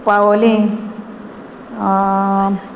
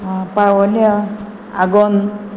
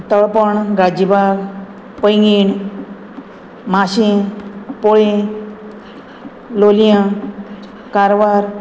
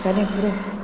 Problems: none marked